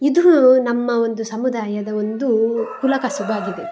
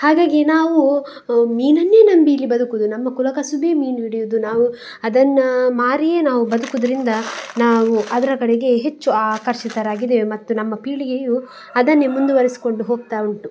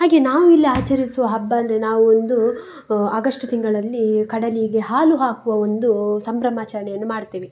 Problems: background sounds at intervals